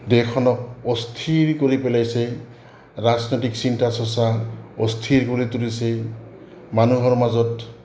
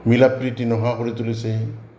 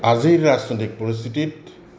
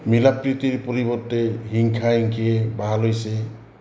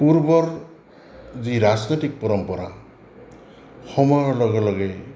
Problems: background sounds at intervals